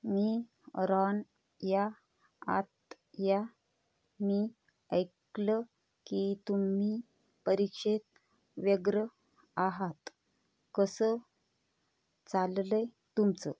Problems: none marked